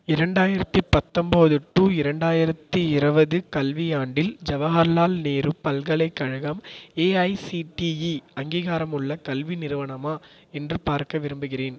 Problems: echo